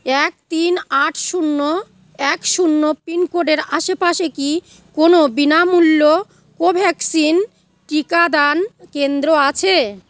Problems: none marked